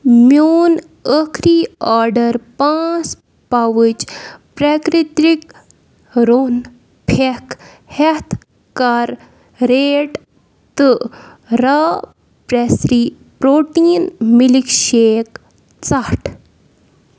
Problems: background sounds at intervals